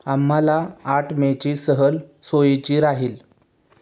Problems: none marked